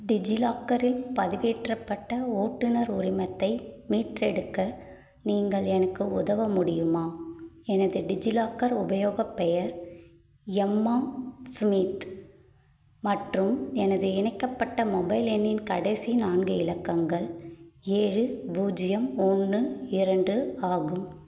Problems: none marked